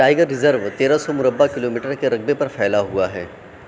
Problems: constant background noise